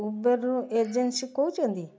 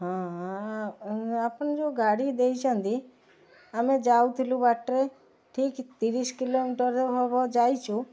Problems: constant background noise